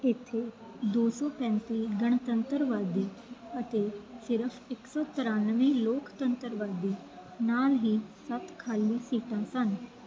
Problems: none marked